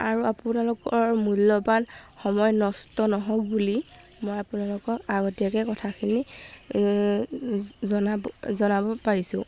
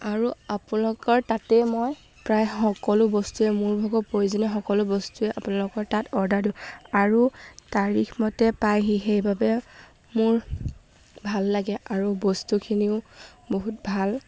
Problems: background sounds at intervals